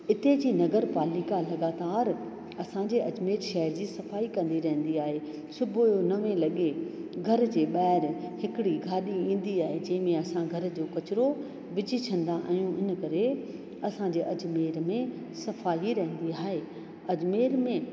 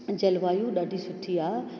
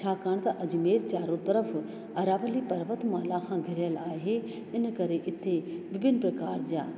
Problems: constant background noise, echo